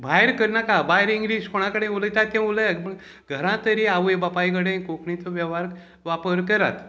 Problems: background conversations at intervals